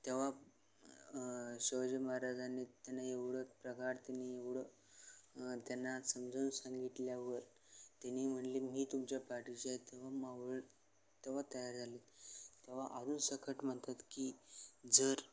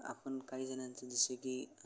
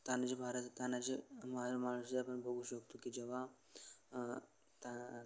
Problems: none marked